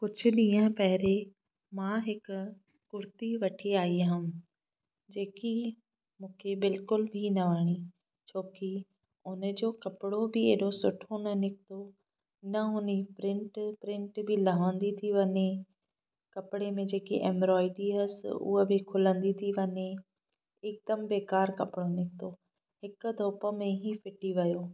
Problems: none marked